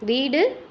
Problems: background sounds at intervals